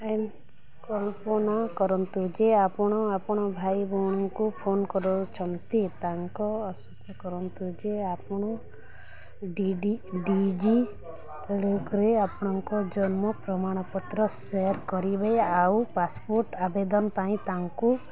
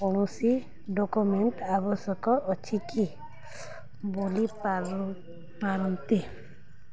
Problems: none marked